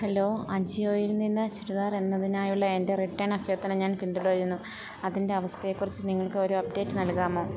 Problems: none marked